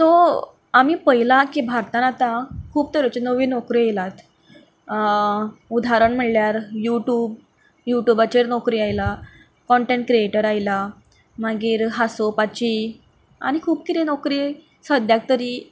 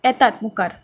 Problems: none marked